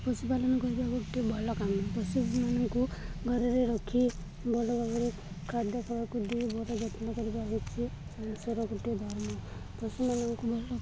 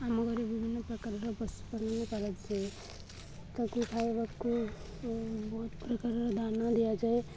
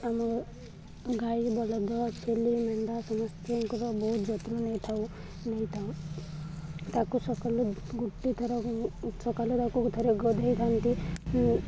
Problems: constant background noise, continuous background conversations